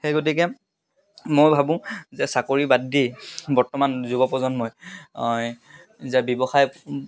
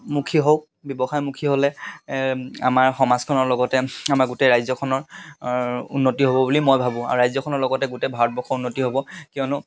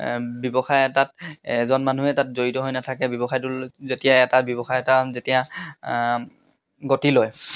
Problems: constant background noise